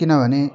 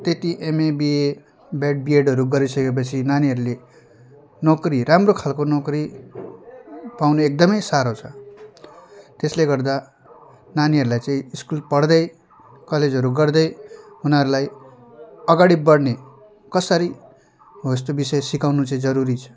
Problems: background conversations at intervals